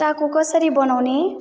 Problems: background sounds at intervals